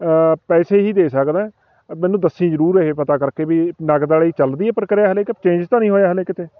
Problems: constant background noise, background conversations at intervals